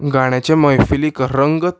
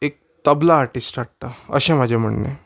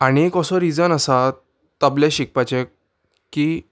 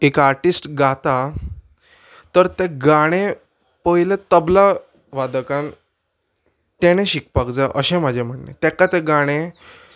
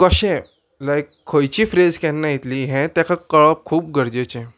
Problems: background sounds at intervals